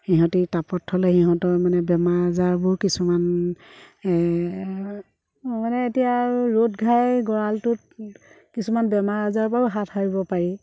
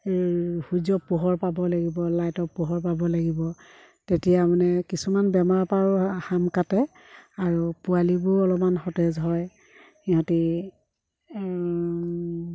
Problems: background sounds at intervals